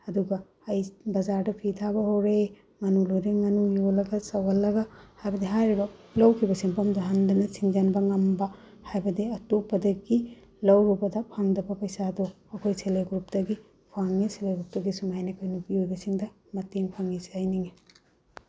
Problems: none marked